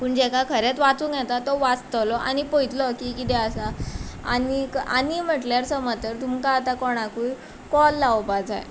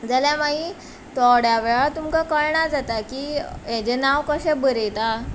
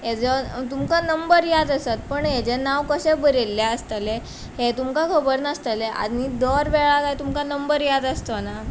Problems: constant background noise